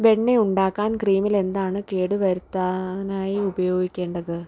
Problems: background sounds at intervals